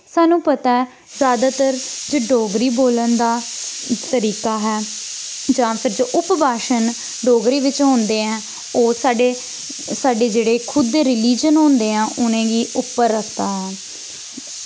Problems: background sounds at intervals